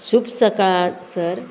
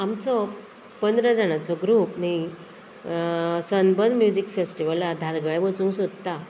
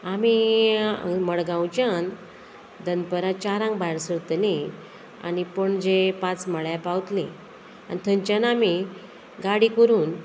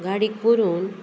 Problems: constant background noise